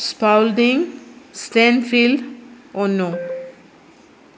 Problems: constant background noise